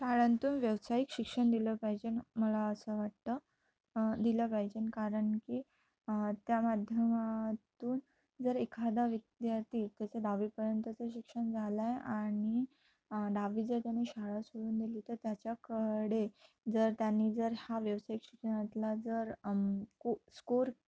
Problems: none marked